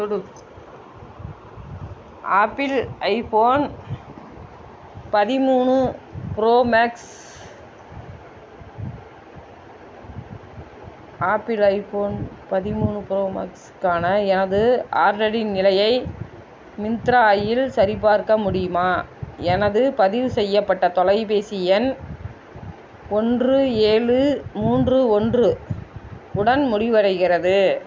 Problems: constant background noise